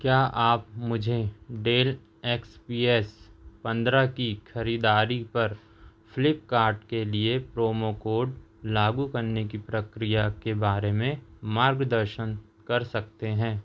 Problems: none marked